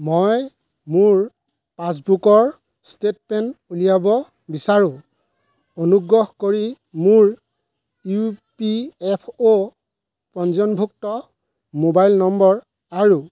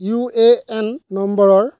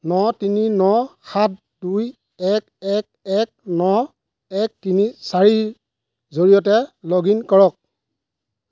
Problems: background sounds at intervals